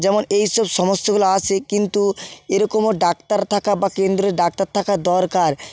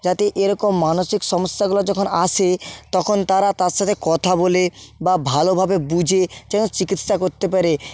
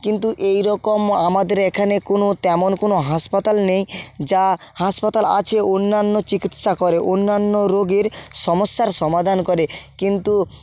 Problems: background sounds at intervals